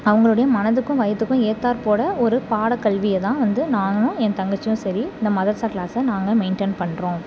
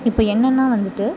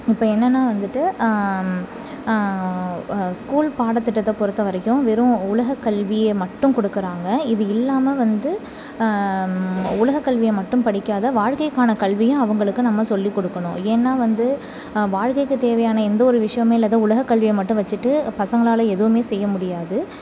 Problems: constant background noise